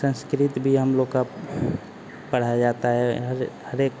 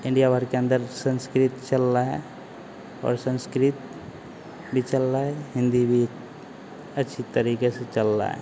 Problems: constant background noise